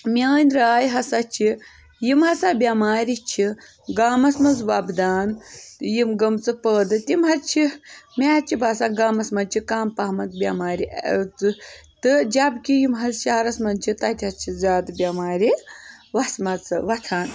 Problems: background sounds at intervals